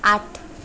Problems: background sounds at intervals